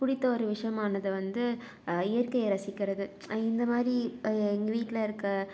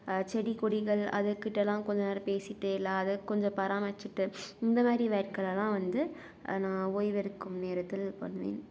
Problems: none marked